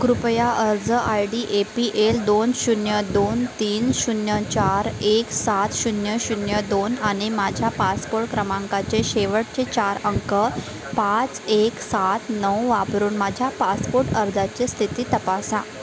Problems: constant background noise, continuous background conversations